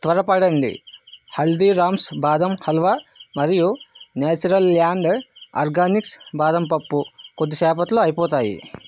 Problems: constant background noise